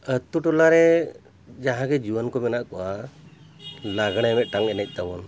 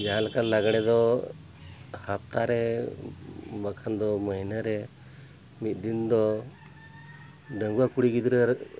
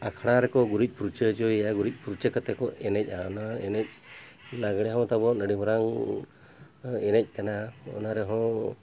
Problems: none marked